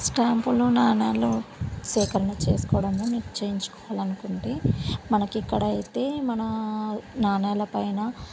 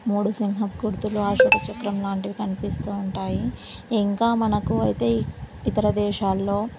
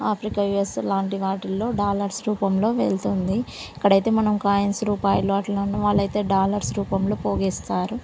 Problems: none marked